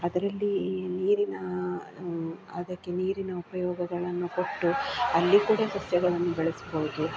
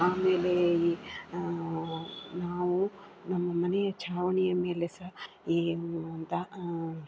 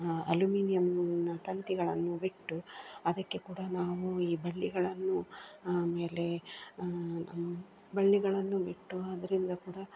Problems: background sounds at intervals, low volume